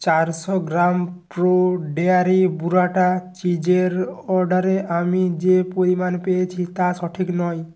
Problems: constant background noise